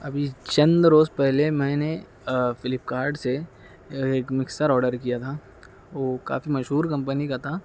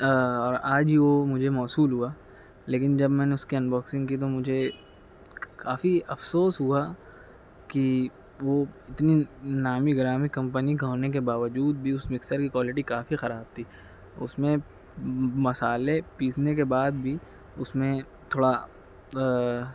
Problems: constant background noise